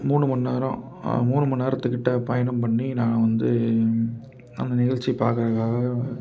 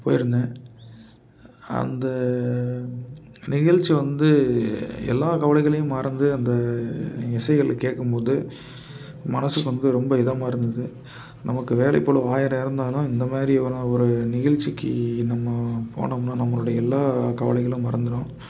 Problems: background sounds at intervals